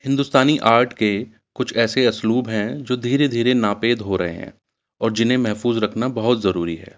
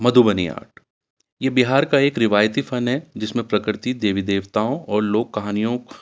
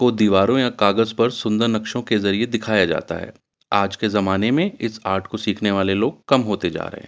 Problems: none marked